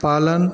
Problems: constant background noise, echo